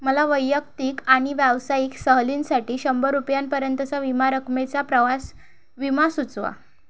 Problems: none marked